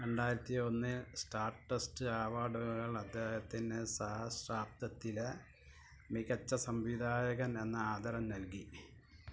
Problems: none marked